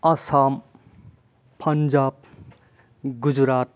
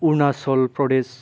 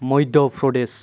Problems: low volume